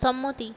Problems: constant background noise